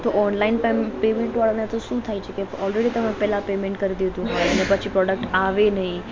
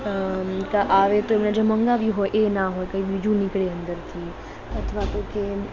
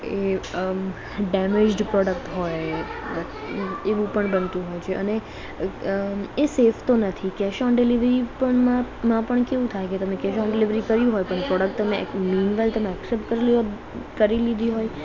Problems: background sounds at intervals, background conversations at intervals